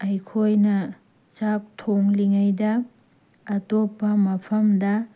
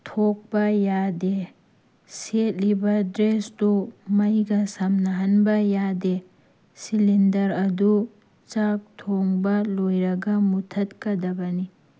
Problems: none marked